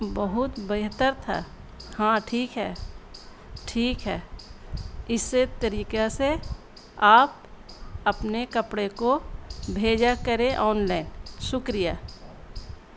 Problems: constant background noise, low volume